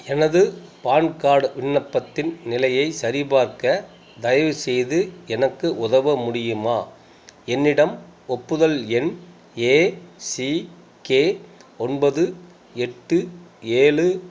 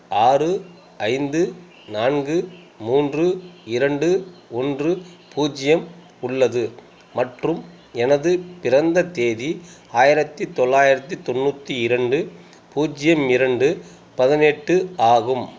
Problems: constant background noise